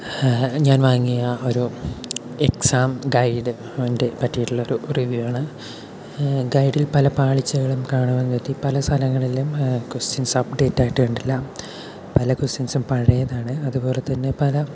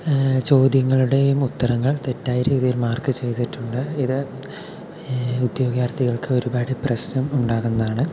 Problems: constant background noise, low volume